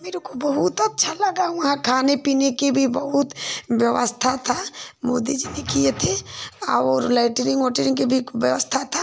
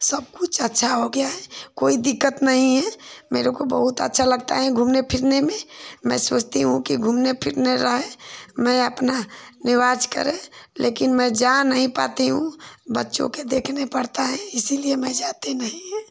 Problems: none marked